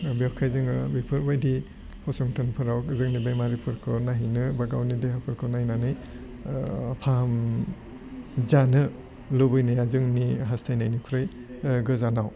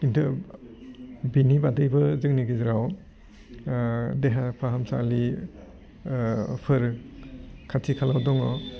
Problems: low volume